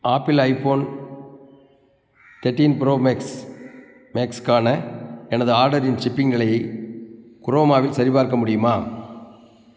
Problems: constant background noise